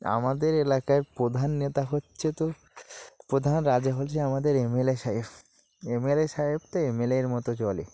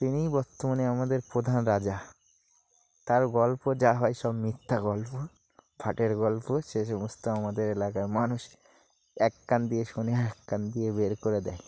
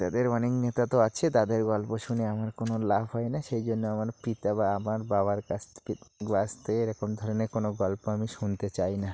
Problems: constant background noise